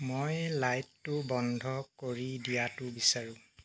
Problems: none marked